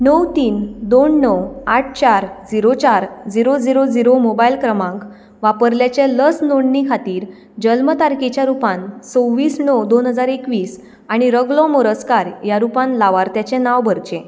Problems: background sounds at intervals